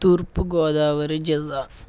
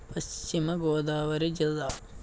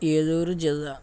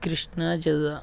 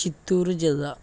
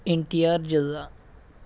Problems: none marked